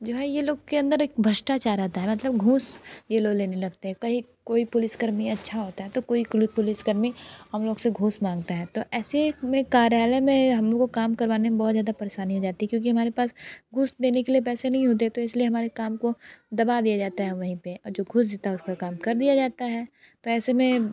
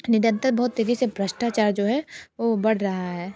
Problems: none marked